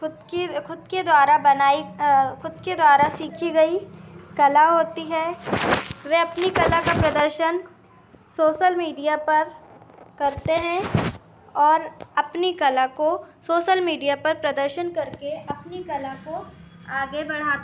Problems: constant background noise, continuous background conversations